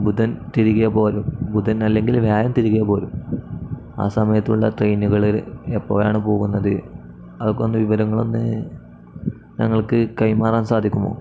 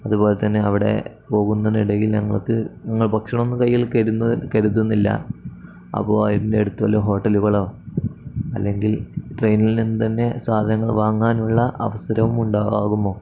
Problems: none marked